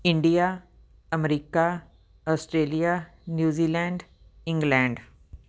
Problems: background sounds at intervals